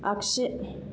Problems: constant background noise